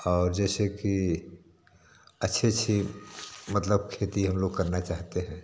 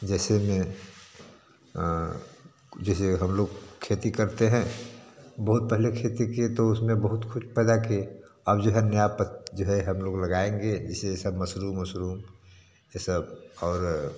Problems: constant background noise